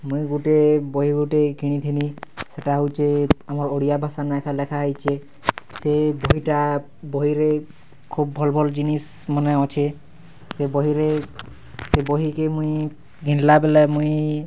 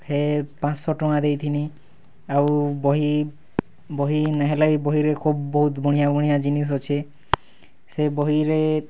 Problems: background sounds at intervals